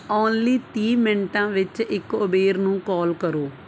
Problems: none marked